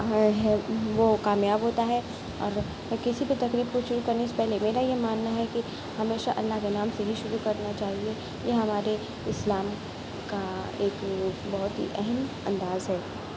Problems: constant background noise